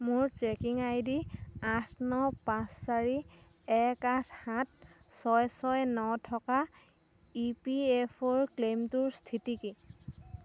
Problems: background sounds at intervals